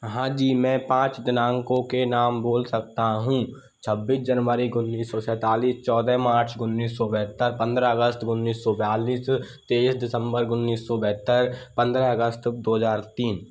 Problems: none marked